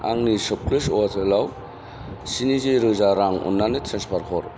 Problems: constant background noise